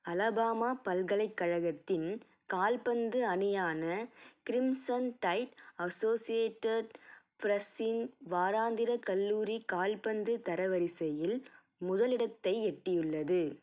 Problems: none marked